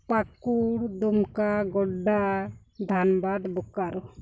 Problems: none marked